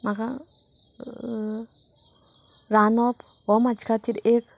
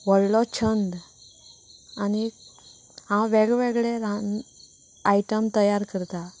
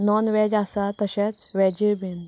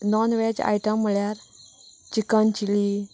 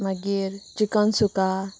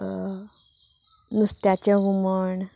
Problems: none marked